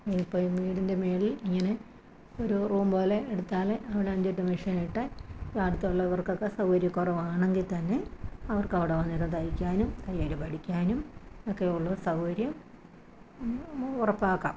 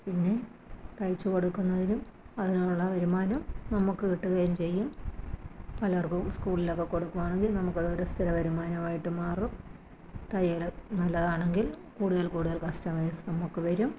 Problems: low volume